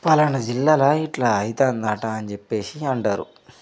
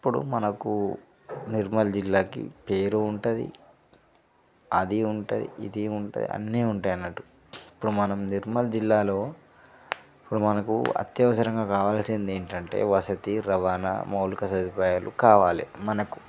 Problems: none marked